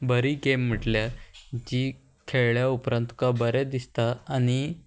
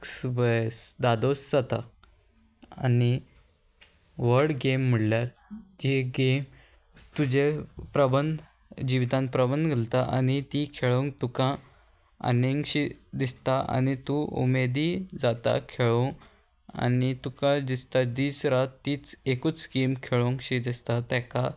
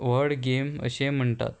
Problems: constant background noise